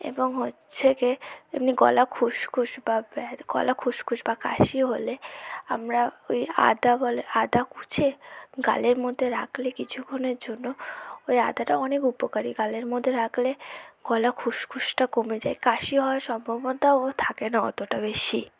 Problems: none marked